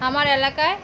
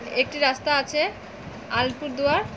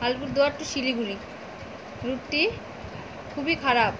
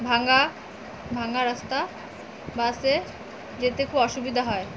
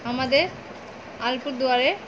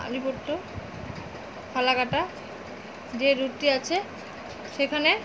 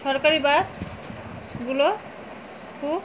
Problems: constant background noise